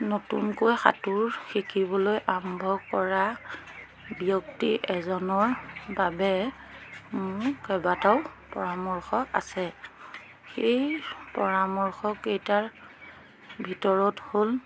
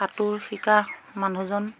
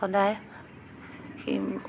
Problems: constant background noise